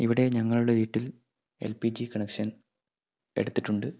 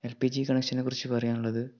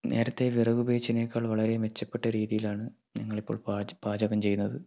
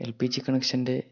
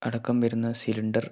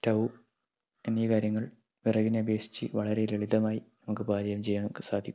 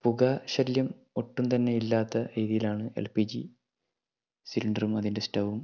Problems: low volume